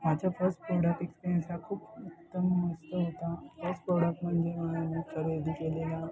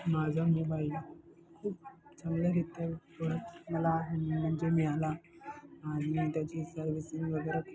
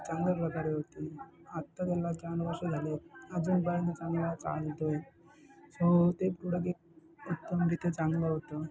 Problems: background sounds at intervals, continuous background conversations